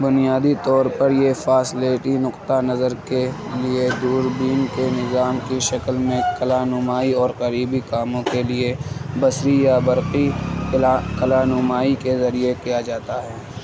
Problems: constant background noise